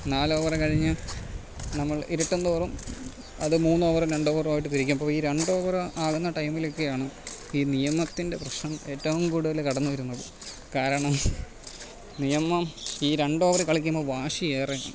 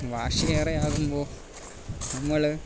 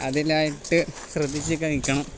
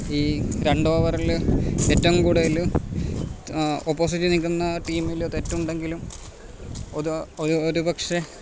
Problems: constant background noise, low volume